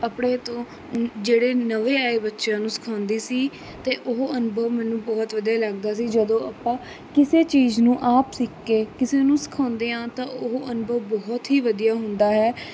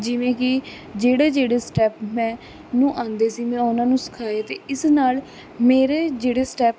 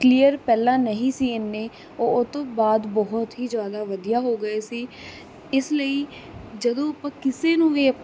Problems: constant background noise